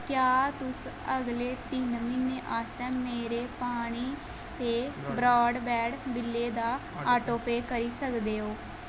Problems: constant background noise